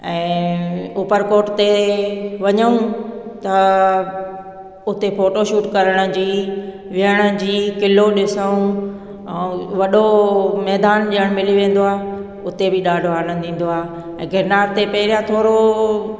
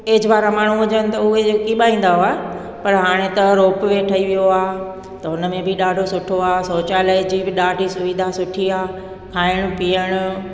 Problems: echo